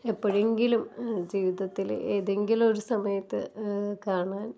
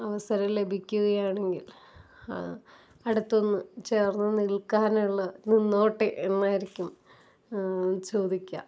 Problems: none marked